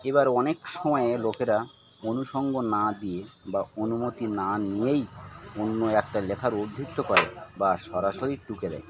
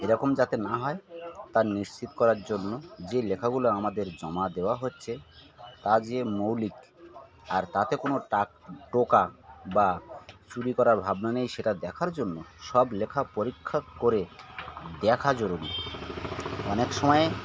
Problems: constant background noise, continuous background conversations